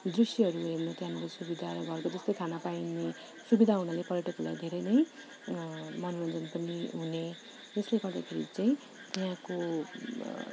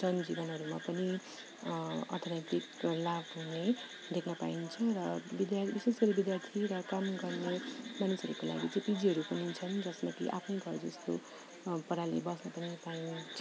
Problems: background sounds at intervals